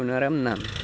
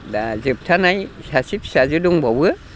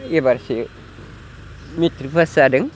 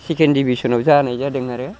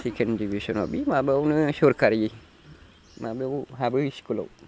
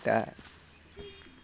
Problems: constant background noise